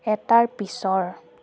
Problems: constant background noise